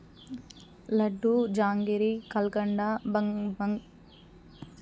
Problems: constant background noise